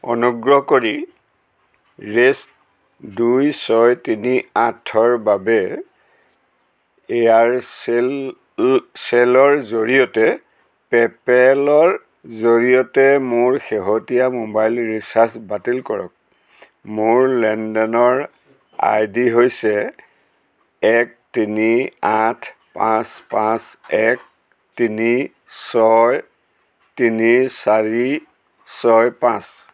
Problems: none marked